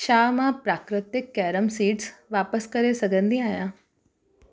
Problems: none marked